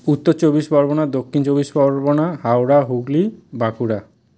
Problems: none marked